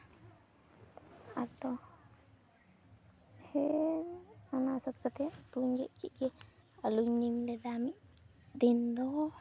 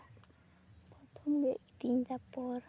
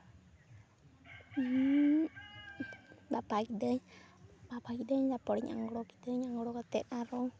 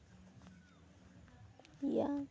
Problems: background sounds at intervals, continuous background conversations